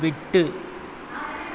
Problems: constant background noise